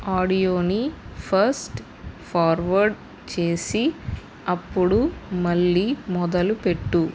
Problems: constant background noise